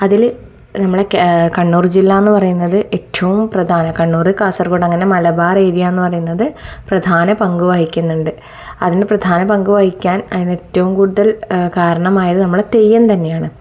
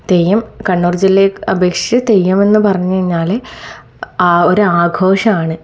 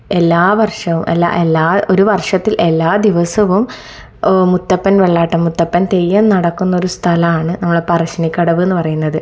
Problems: none marked